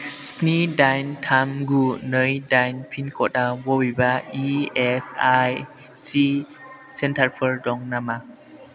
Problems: constant background noise